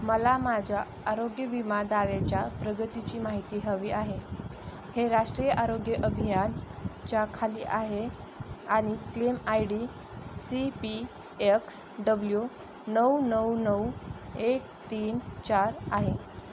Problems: constant background noise